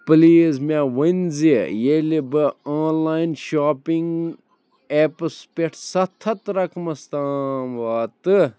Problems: none marked